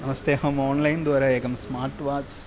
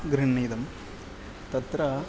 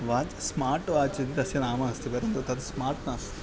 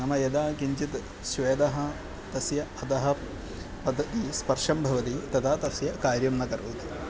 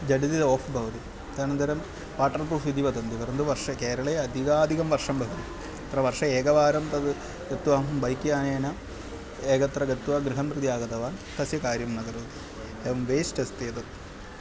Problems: constant background noise